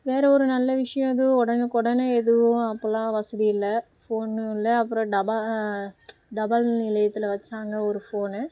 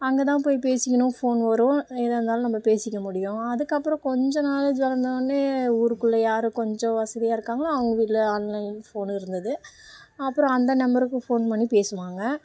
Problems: background sounds at intervals